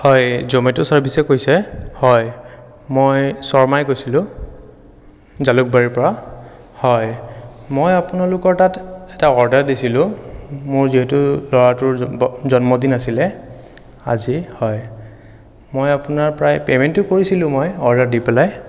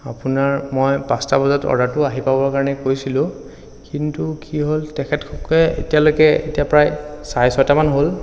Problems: none marked